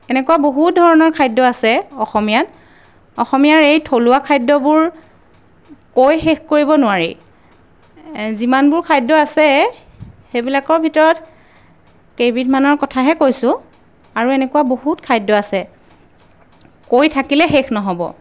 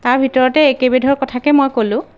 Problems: background sounds at intervals